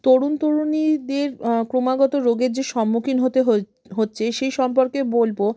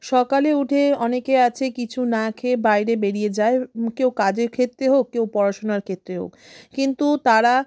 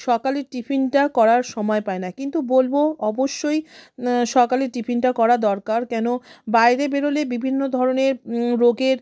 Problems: none marked